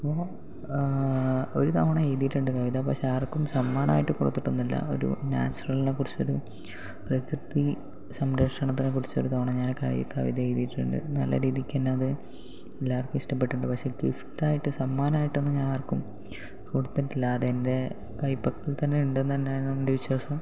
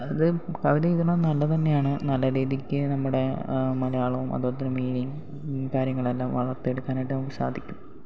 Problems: background sounds at intervals, low volume